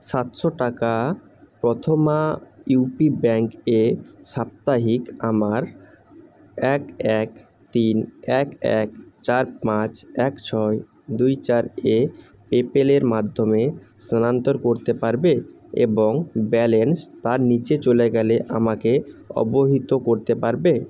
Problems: constant background noise